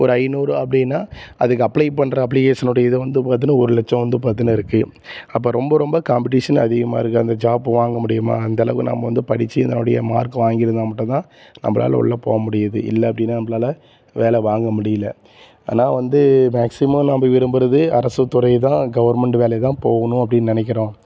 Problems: background sounds at intervals